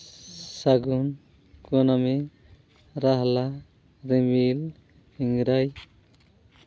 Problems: constant background noise